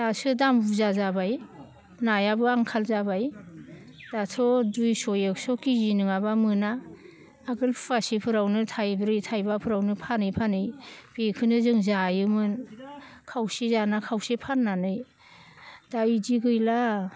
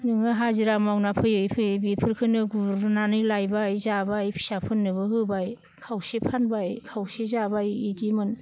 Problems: none marked